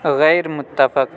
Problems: none marked